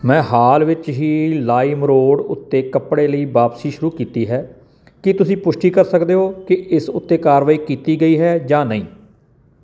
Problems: background sounds at intervals